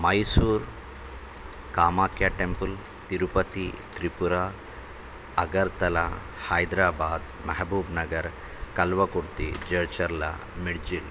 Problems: constant background noise